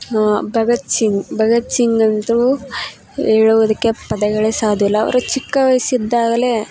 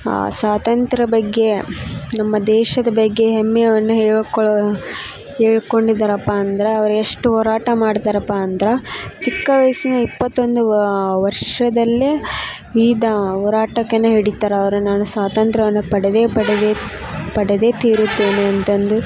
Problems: background sounds at intervals